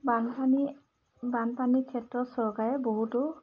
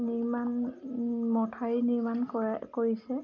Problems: background sounds at intervals